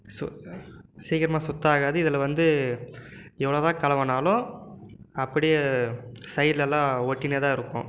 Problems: background conversations at intervals